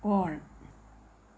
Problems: low volume